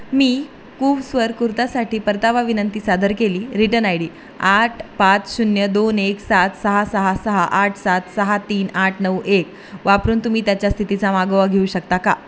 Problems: none marked